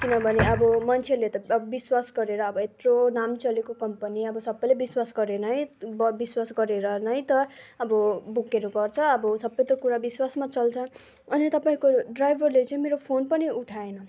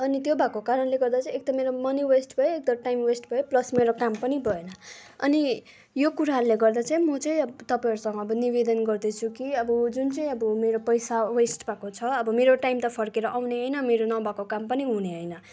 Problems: constant background noise, background conversations at intervals